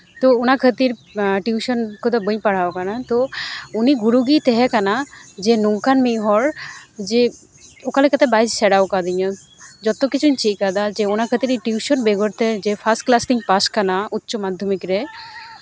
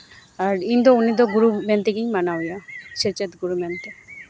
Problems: constant background noise